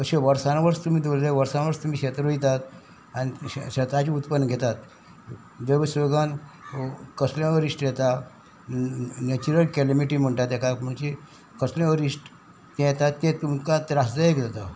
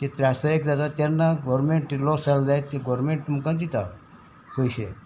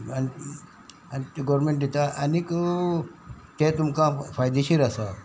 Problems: constant background noise